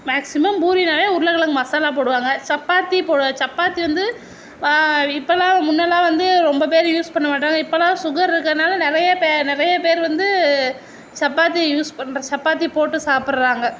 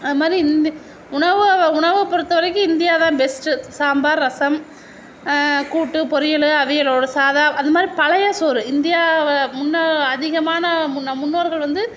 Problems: none marked